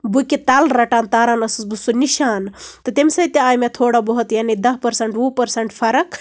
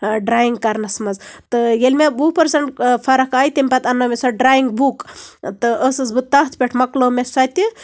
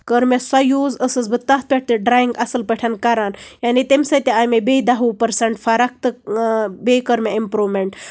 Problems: background sounds at intervals